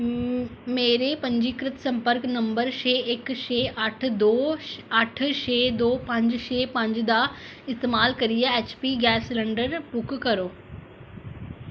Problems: constant background noise